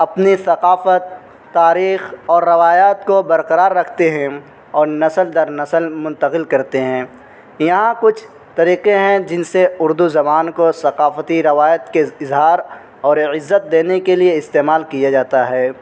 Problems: constant background noise